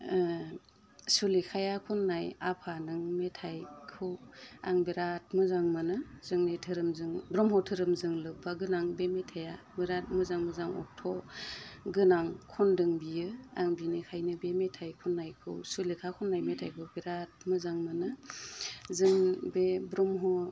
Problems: constant background noise